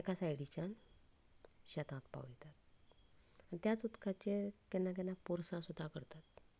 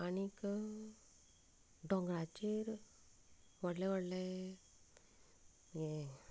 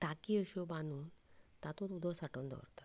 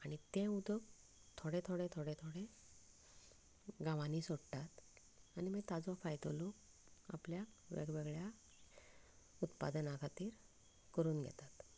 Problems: constant background noise, low volume